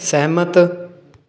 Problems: constant background noise